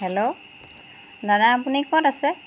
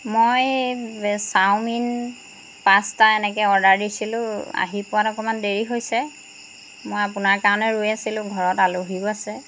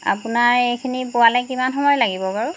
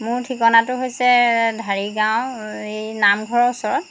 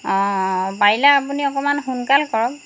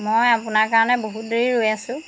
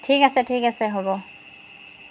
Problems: background sounds at intervals